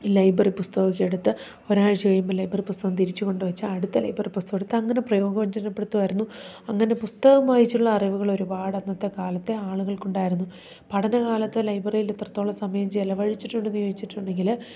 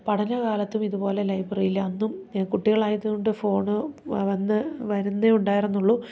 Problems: none marked